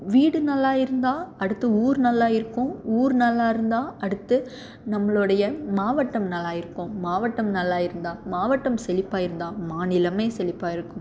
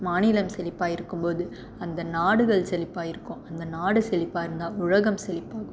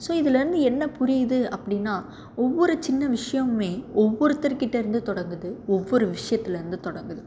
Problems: none marked